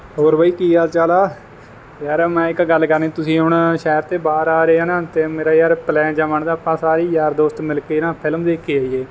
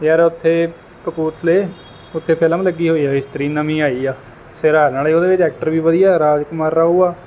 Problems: none marked